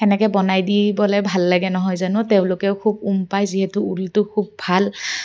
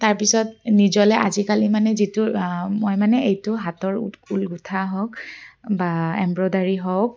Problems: none marked